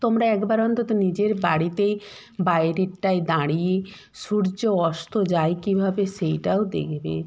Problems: constant background noise